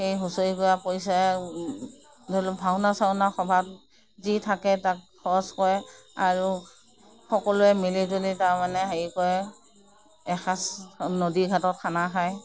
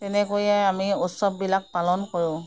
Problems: none marked